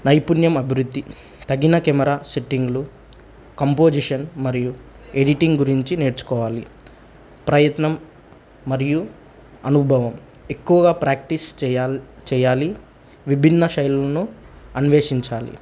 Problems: none marked